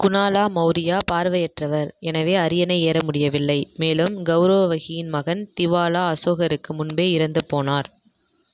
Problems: echo